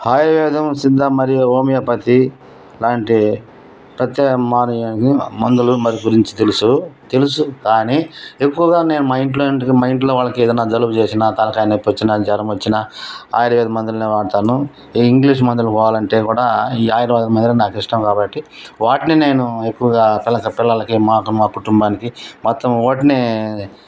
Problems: none marked